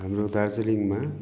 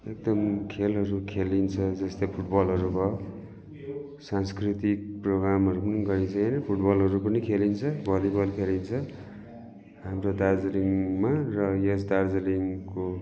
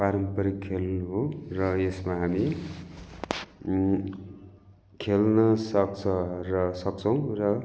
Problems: continuous background conversations